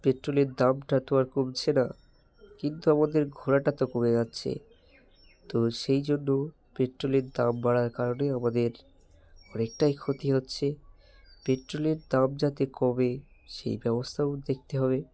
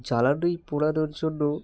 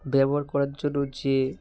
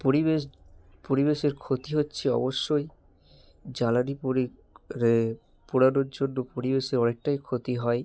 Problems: none marked